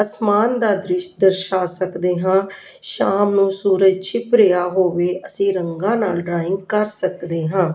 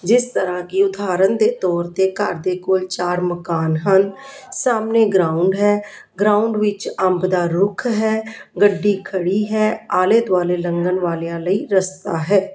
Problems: continuous background conversations